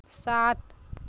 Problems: none marked